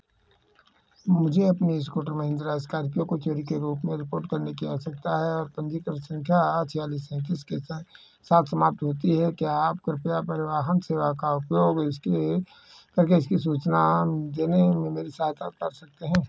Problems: background sounds at intervals